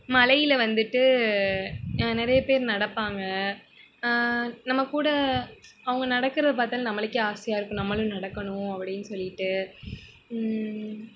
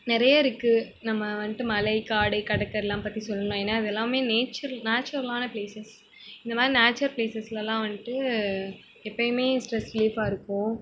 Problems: none marked